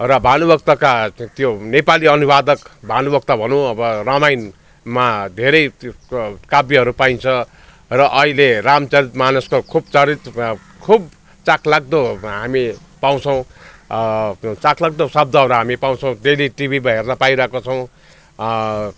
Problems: constant background noise